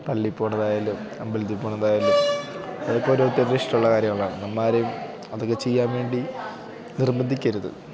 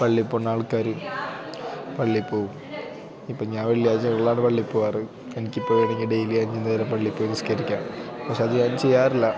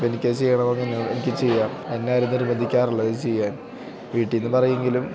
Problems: constant background noise, low volume